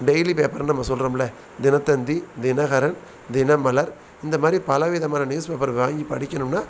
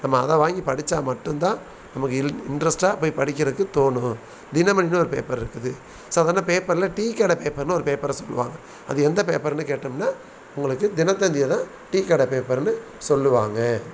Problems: background sounds at intervals